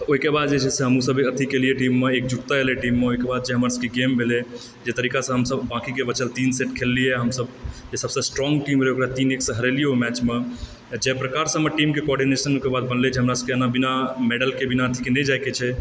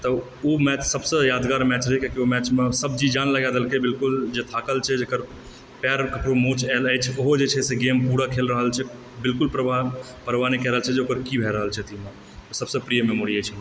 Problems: background sounds at intervals